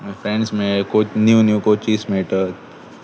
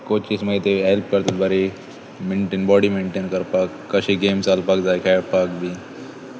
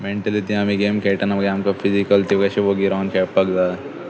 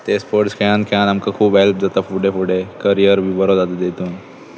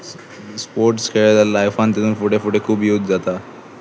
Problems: constant background noise, continuous background conversations